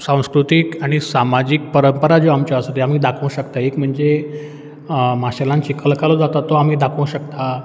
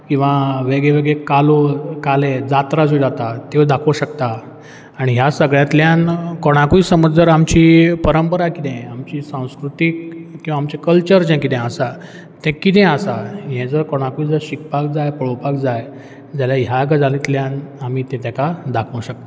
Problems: background sounds at intervals